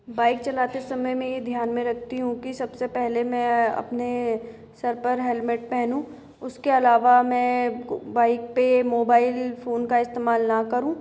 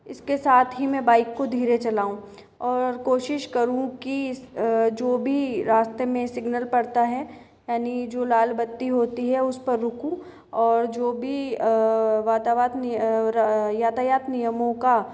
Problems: echo